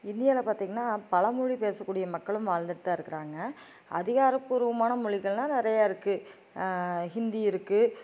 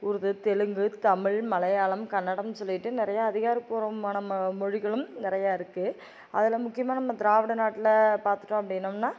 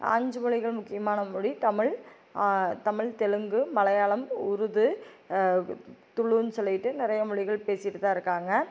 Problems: none marked